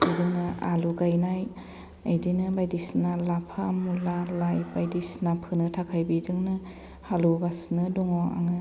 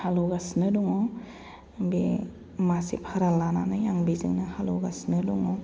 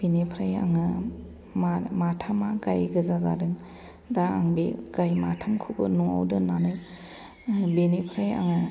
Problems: none marked